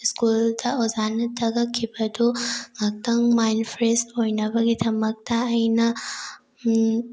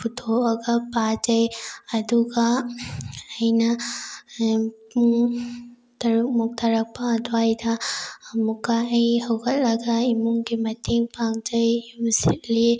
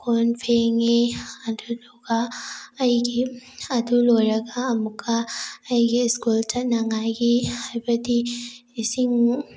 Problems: none marked